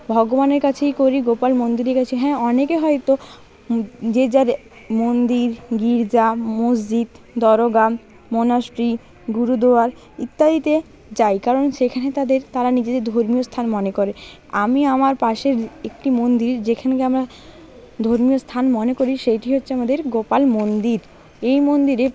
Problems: constant background noise, continuous background conversations